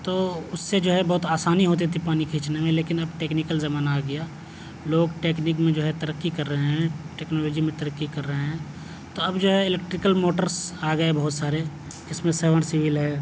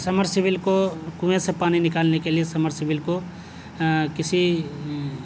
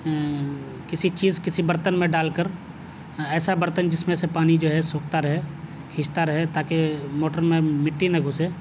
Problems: none marked